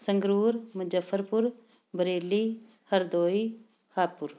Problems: background sounds at intervals